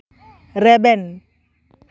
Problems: background sounds at intervals